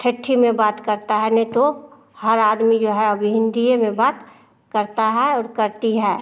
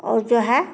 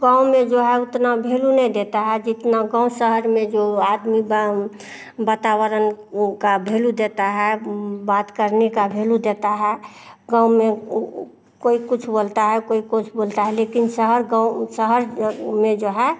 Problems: none marked